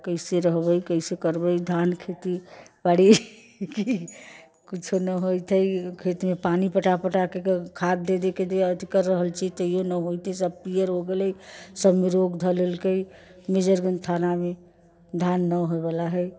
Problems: background sounds at intervals, background conversations at intervals